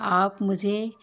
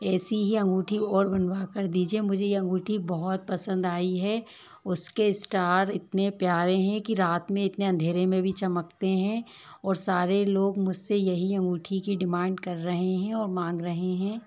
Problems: constant background noise, low volume